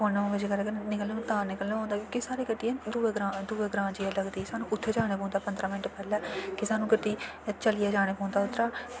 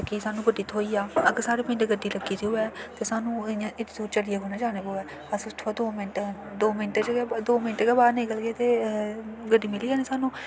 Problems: constant background noise